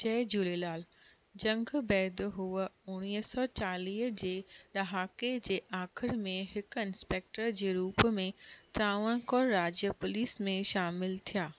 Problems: none marked